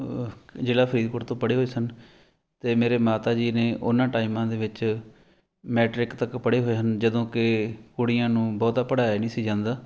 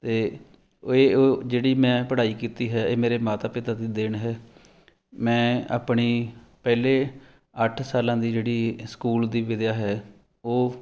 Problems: none marked